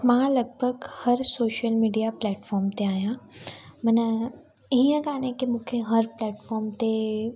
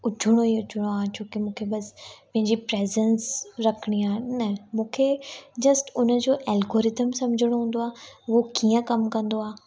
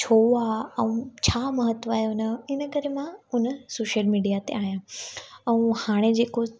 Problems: constant background noise